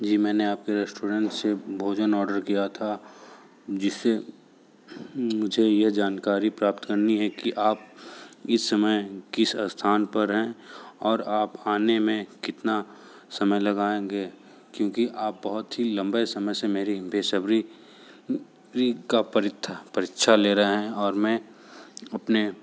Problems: background sounds at intervals